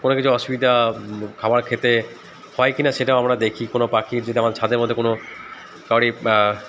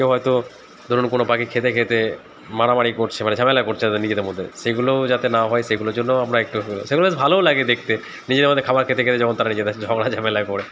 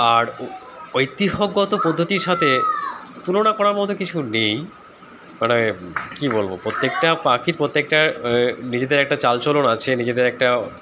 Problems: constant background noise, background conversations at intervals